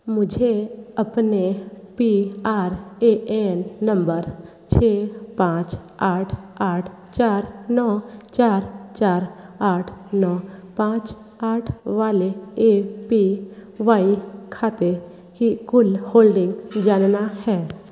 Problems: background sounds at intervals